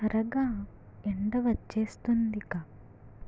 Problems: low volume